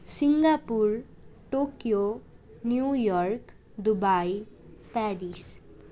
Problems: none marked